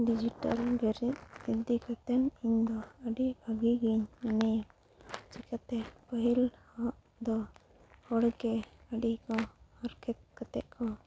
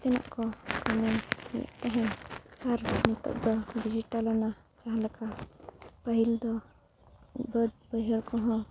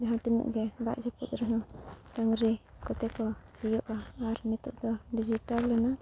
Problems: constant background noise